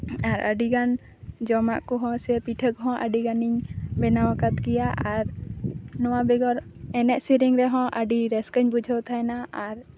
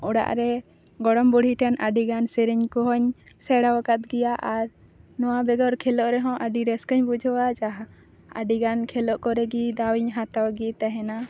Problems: none marked